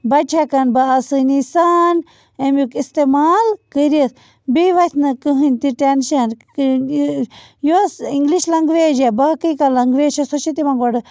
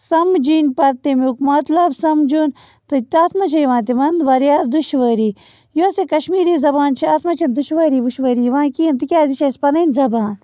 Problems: constant background noise